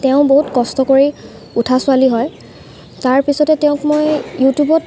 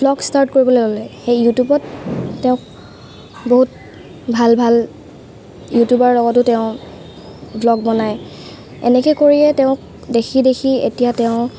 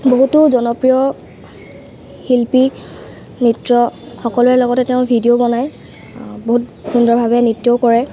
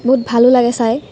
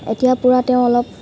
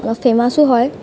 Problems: constant background noise